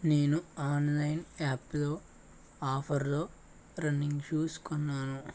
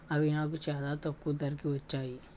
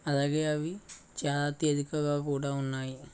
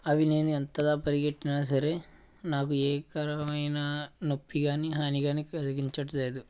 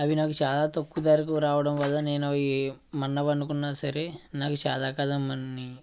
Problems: background sounds at intervals